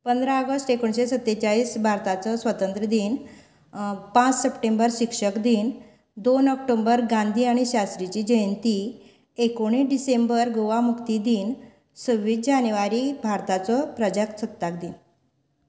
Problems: none marked